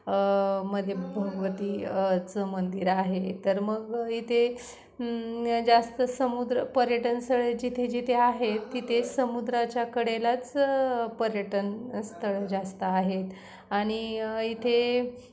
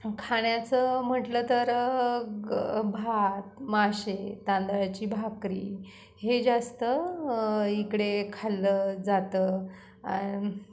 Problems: none marked